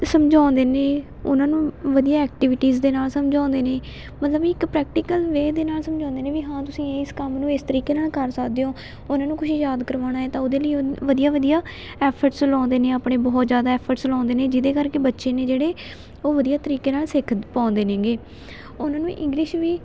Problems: constant background noise, continuous background conversations